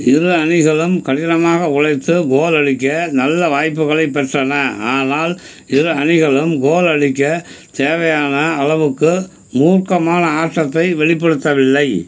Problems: constant background noise